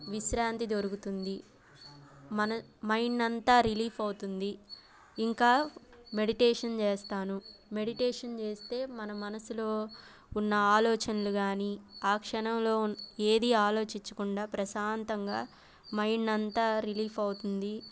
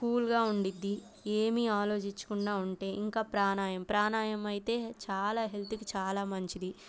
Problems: constant background noise